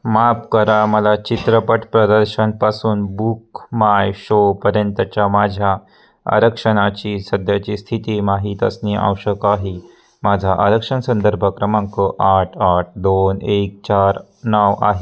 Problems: none marked